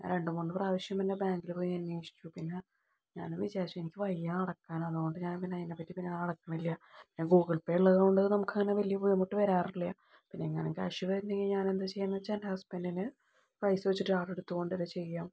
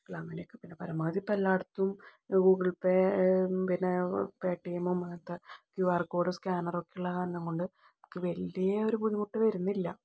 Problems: low volume